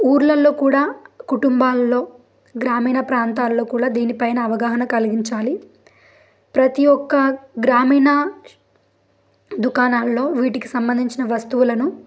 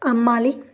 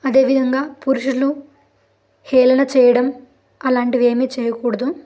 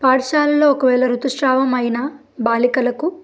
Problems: background sounds at intervals